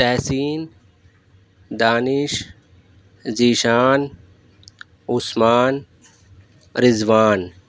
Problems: none marked